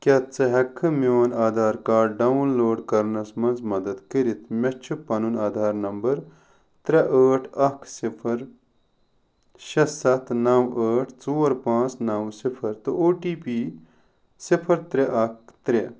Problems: none marked